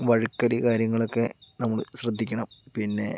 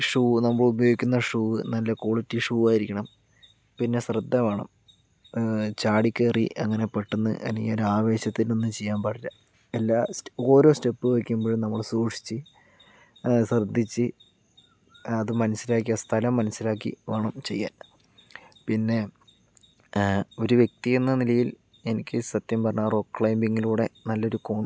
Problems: low volume